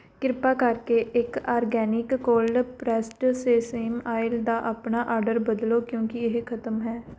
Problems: background sounds at intervals